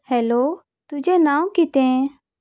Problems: none marked